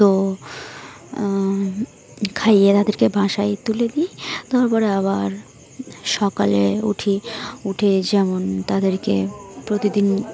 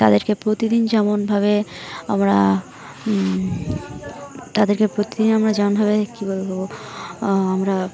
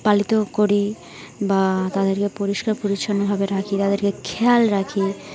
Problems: none marked